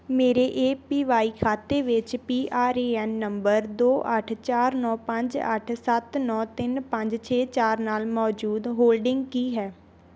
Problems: background sounds at intervals